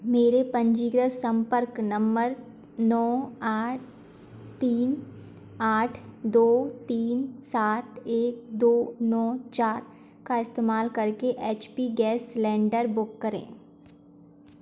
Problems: background sounds at intervals